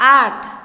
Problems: none marked